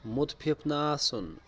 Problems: background sounds at intervals